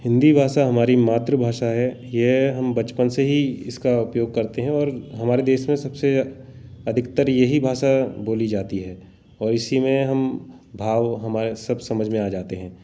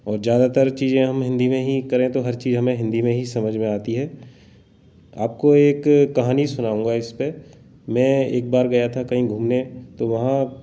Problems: background sounds at intervals